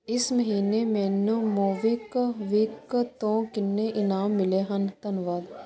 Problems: constant background noise